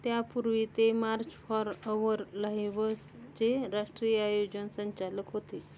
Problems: constant background noise